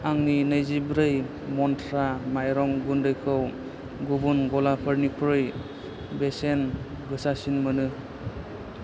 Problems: none marked